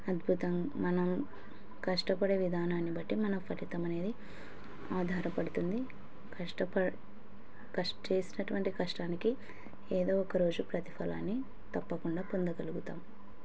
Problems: background conversations at intervals